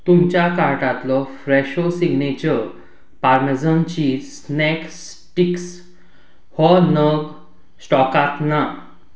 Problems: none marked